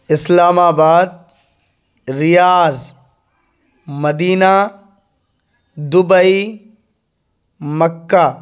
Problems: none marked